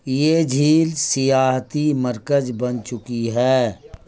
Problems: none marked